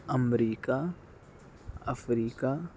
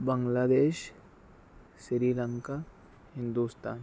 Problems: none marked